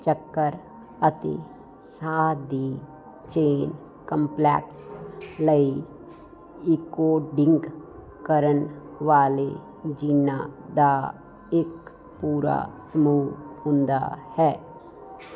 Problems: none marked